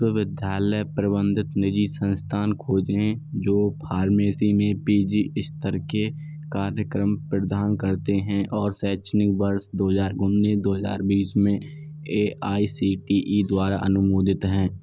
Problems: constant background noise